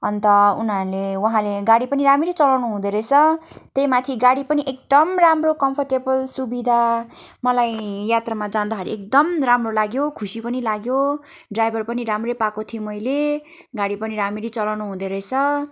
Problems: constant background noise